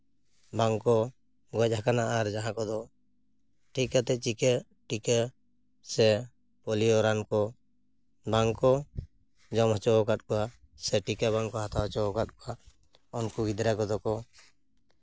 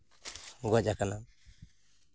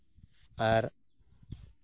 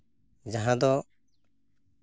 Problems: background sounds at intervals